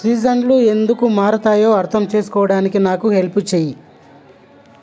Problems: constant background noise